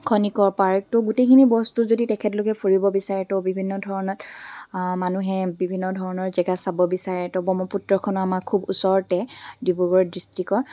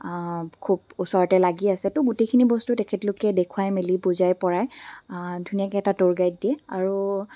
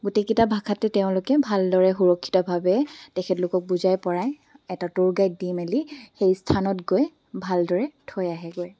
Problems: background sounds at intervals